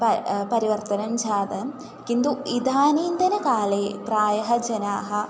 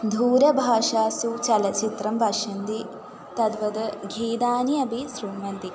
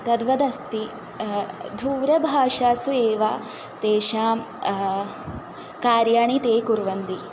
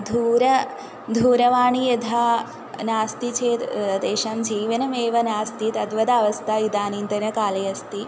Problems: constant background noise, continuous background conversations